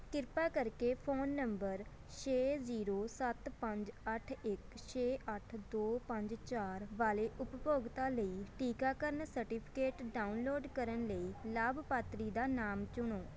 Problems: background sounds at intervals, background conversations at intervals